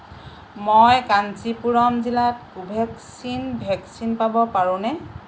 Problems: constant background noise